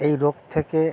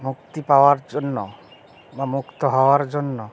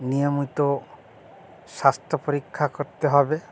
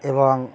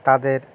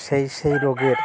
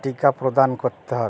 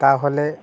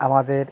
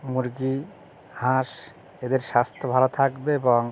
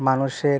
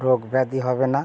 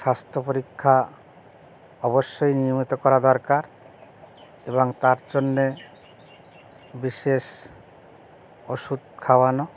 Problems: none marked